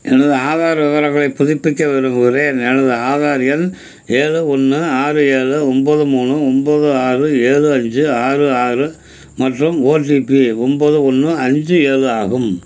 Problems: constant background noise